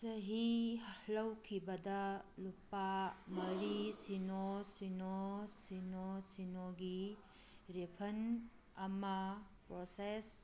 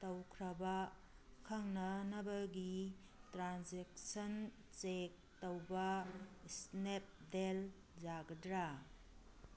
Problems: background sounds at intervals